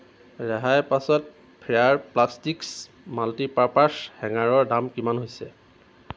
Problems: constant background noise